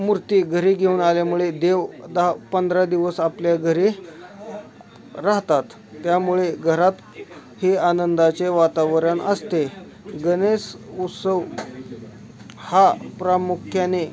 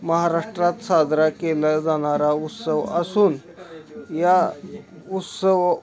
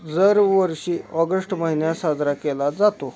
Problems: constant background noise, continuous background conversations